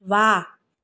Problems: none marked